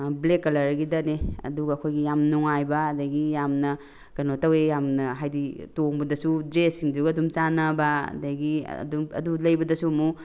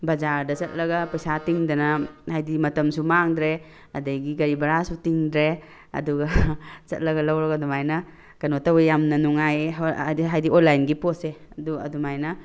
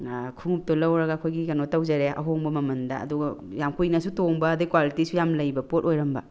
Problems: background sounds at intervals